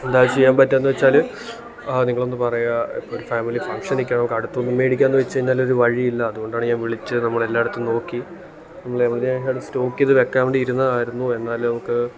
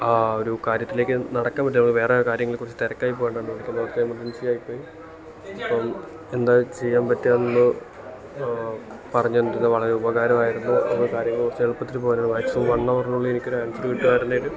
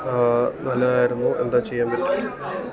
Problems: background conversations at intervals